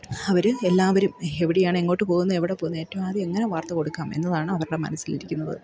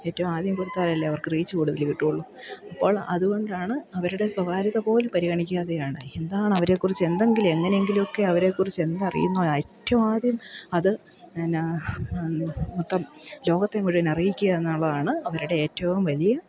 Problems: background sounds at intervals